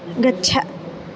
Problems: constant background noise